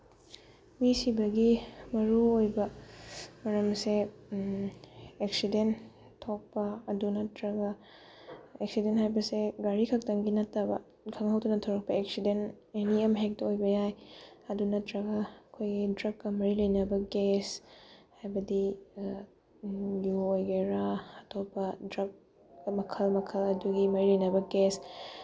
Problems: background sounds at intervals